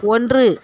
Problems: constant background noise